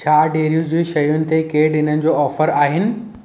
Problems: none marked